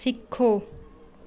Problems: none marked